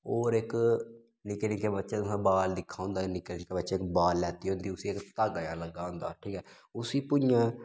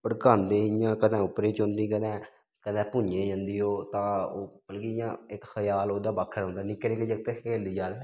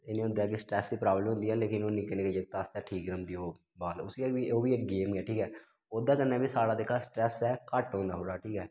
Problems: none marked